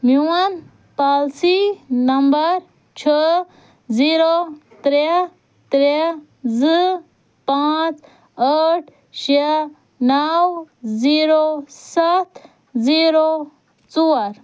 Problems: none marked